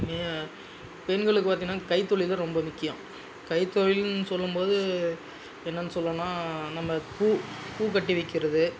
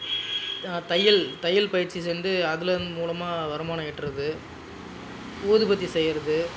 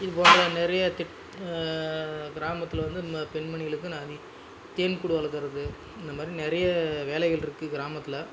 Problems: constant background noise, background conversations at intervals